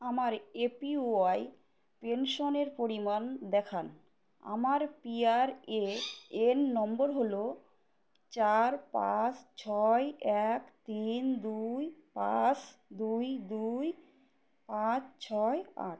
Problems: none marked